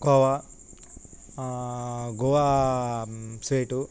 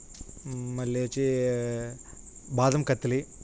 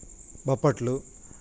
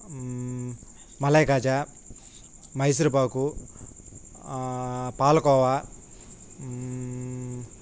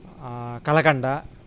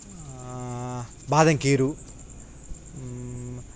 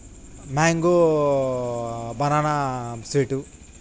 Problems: constant background noise